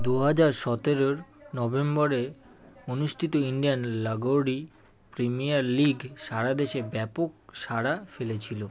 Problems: none marked